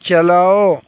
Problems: constant background noise